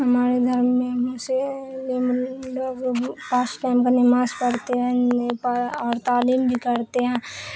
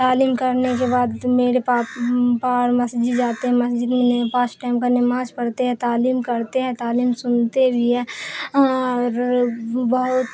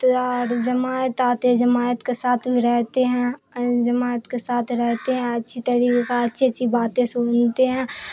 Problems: constant background noise